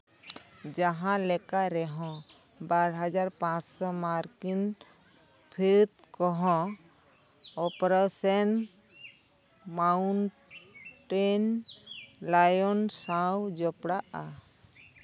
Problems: background sounds at intervals